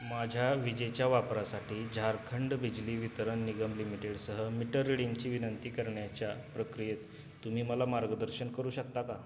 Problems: background sounds at intervals